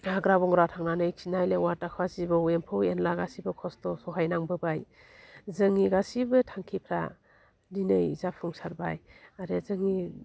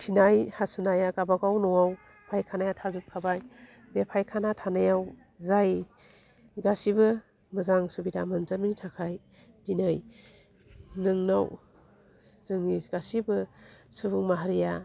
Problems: low volume